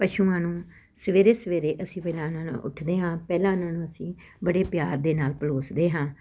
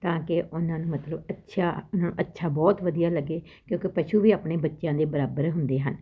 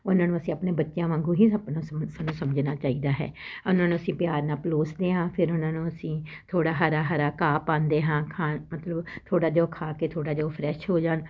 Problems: constant background noise